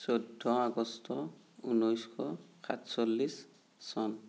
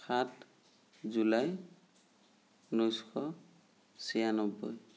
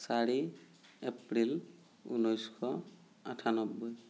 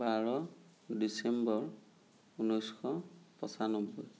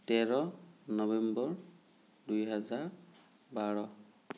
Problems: none marked